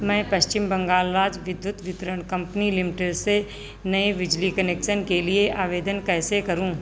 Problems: background sounds at intervals